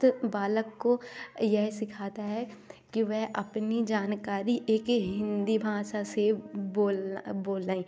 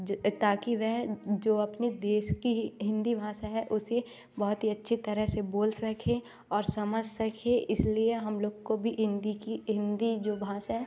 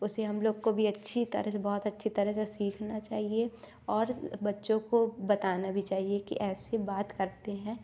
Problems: background sounds at intervals, background conversations at intervals